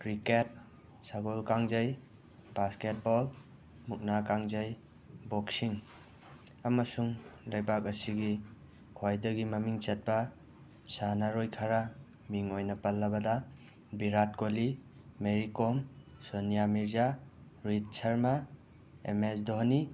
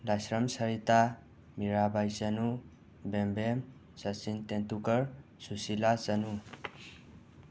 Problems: constant background noise